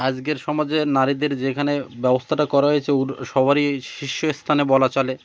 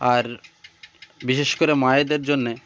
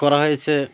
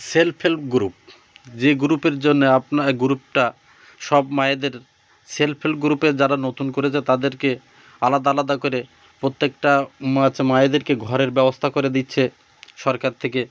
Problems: none marked